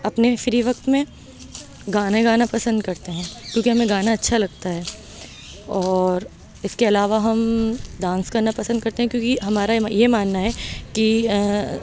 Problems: background sounds at intervals